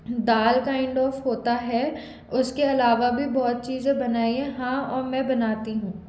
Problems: background sounds at intervals